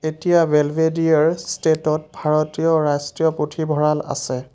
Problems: none marked